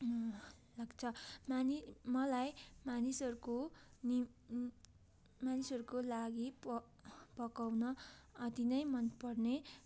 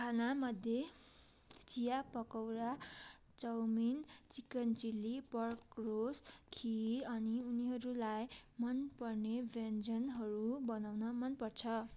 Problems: background sounds at intervals